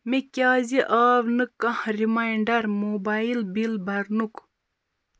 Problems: constant background noise